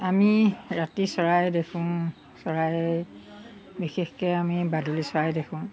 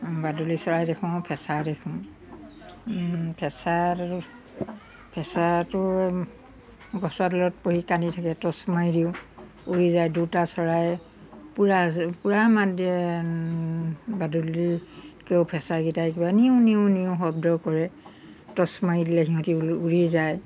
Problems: background sounds at intervals